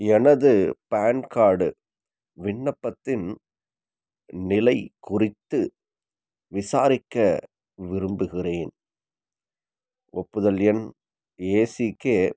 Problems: none marked